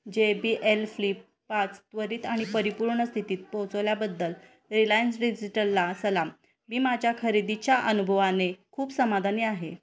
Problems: background sounds at intervals, background conversations at intervals